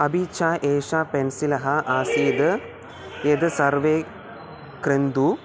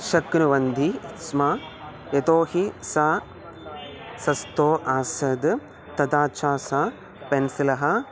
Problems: background sounds at intervals